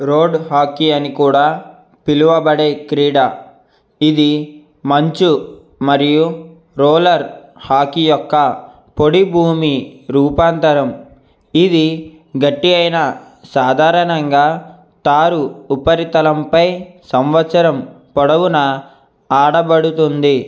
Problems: none marked